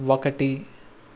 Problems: constant background noise